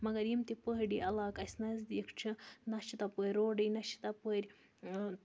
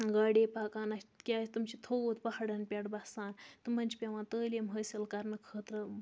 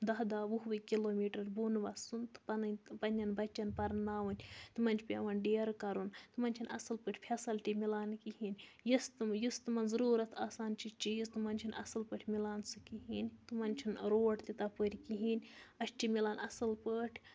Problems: background sounds at intervals